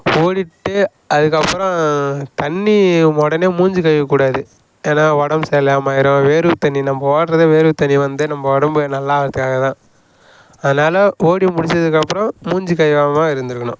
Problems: background sounds at intervals